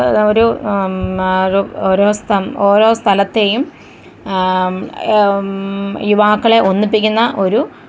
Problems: background sounds at intervals